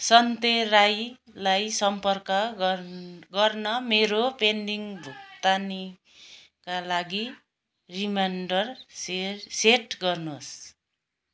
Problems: background conversations at intervals